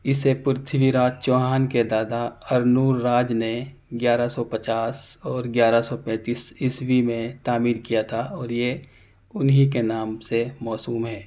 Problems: none marked